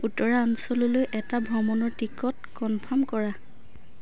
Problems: constant background noise